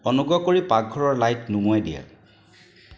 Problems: constant background noise